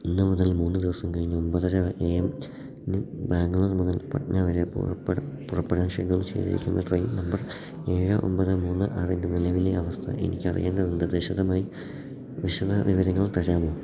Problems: background sounds at intervals, low volume